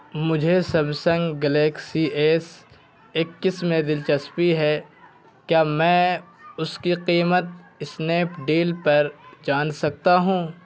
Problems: constant background noise